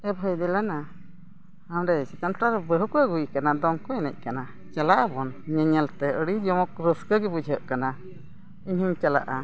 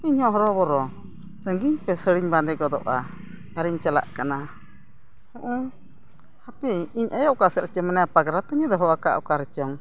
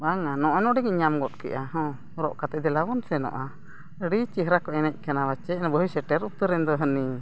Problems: constant background noise